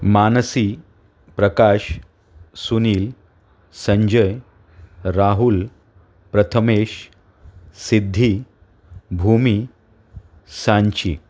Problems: background sounds at intervals